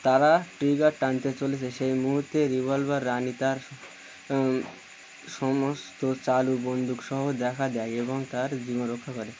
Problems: constant background noise